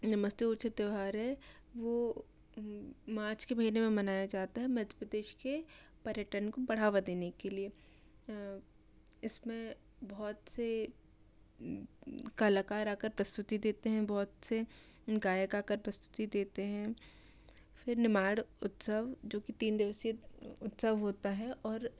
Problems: low volume